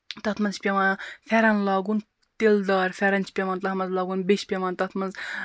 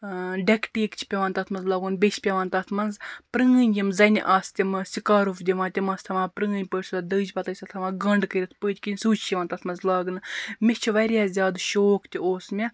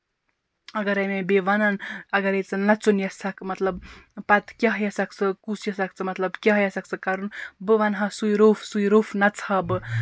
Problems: background sounds at intervals